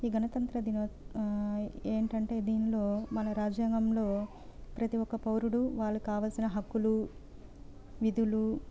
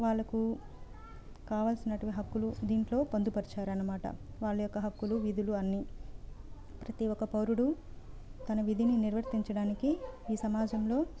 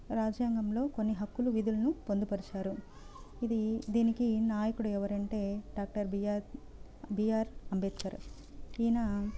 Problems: none marked